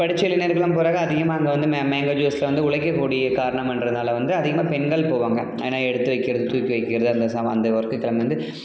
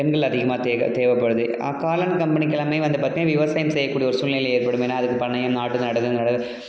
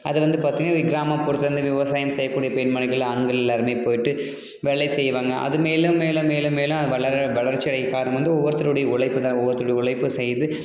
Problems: background conversations at intervals